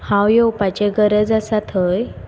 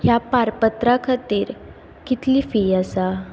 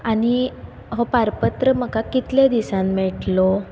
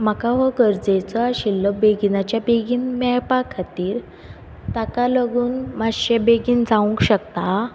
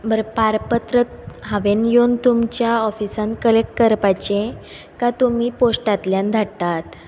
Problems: background sounds at intervals